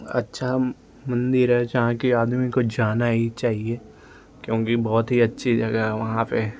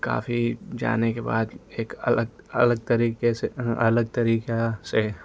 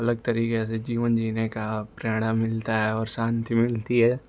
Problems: constant background noise